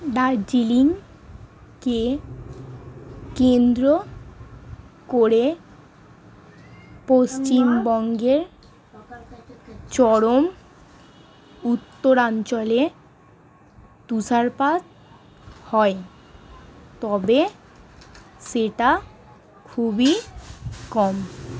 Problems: none marked